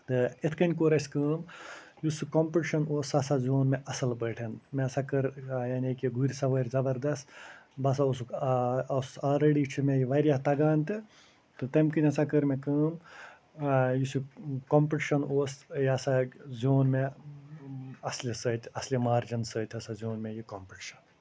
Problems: none marked